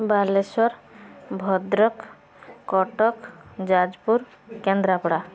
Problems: none marked